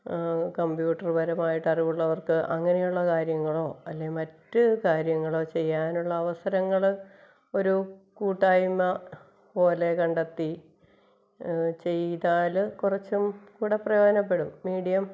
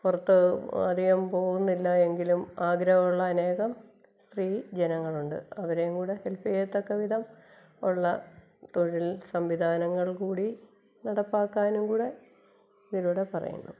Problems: background sounds at intervals, low volume